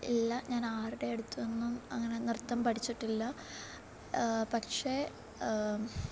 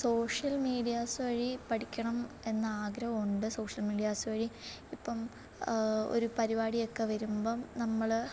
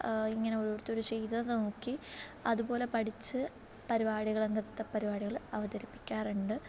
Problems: low volume